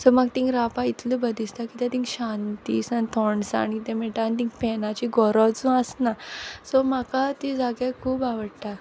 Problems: background sounds at intervals